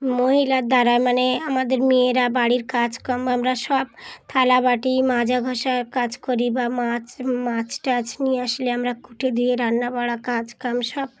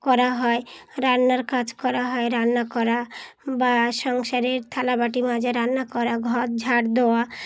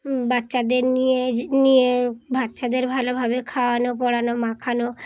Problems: none marked